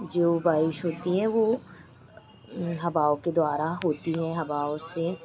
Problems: none marked